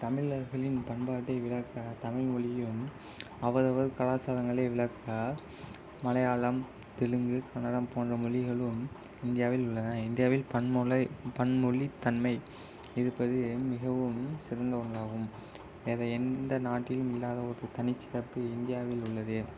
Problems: constant background noise